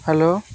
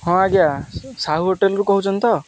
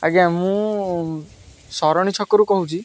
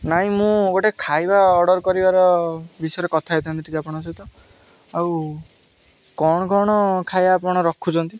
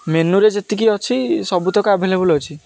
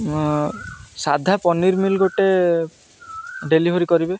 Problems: none marked